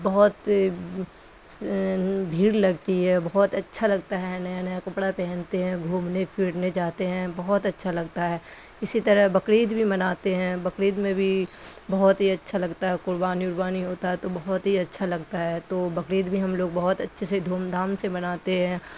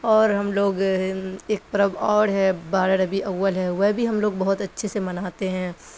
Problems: constant background noise